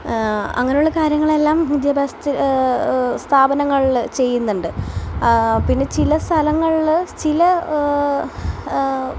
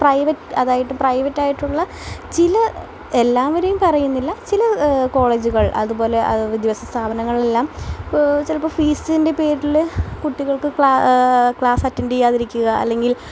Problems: none marked